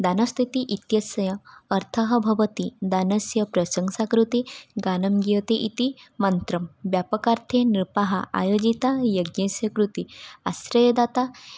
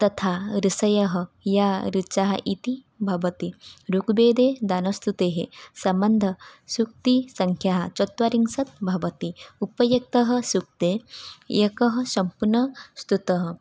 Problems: none marked